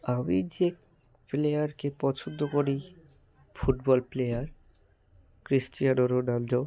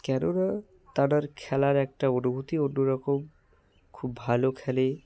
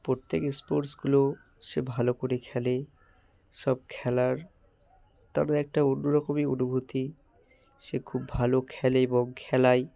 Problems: constant background noise